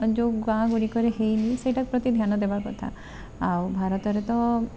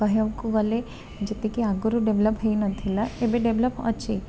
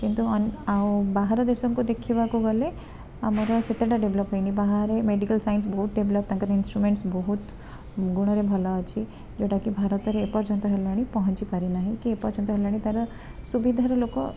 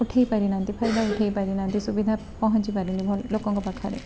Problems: constant background noise, continuous background conversations